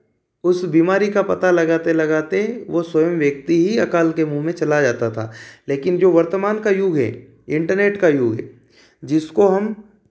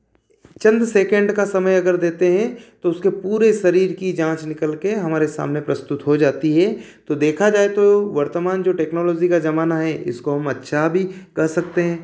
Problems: none marked